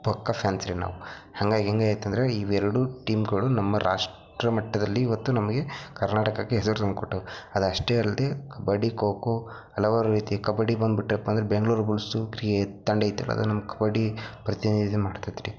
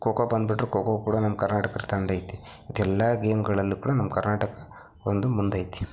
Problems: low volume